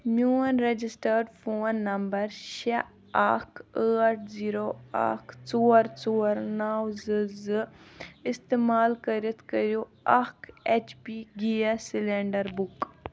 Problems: background sounds at intervals